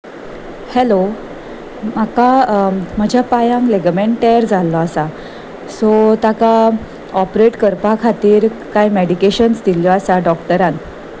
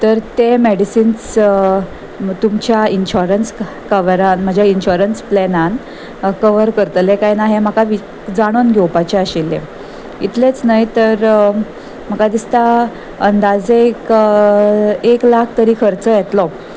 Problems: constant background noise